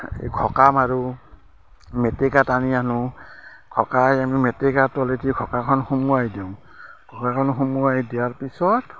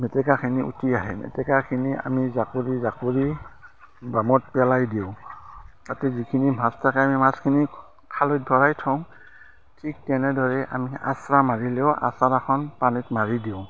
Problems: constant background noise, background conversations at intervals